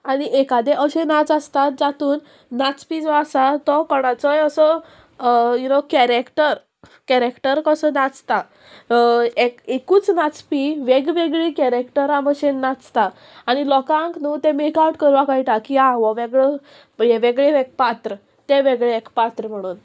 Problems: none marked